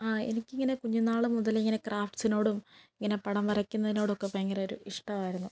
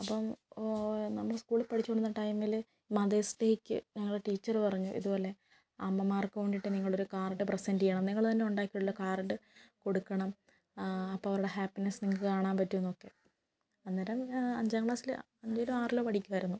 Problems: none marked